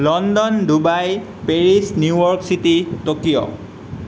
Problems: constant background noise